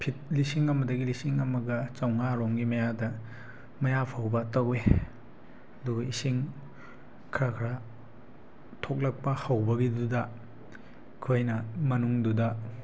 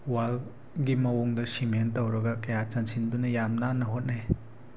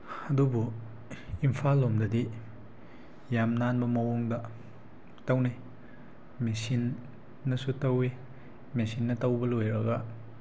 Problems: background sounds at intervals